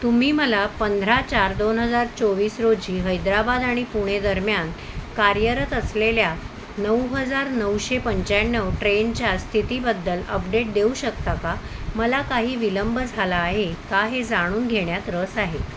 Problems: constant background noise